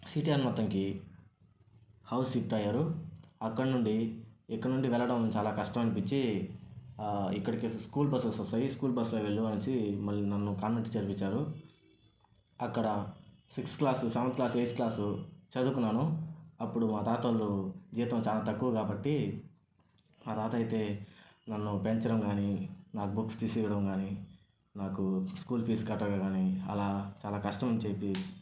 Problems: none marked